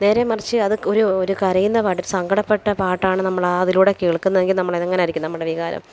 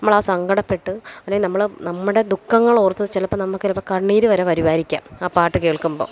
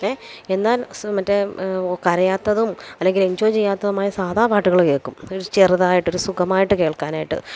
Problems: background sounds at intervals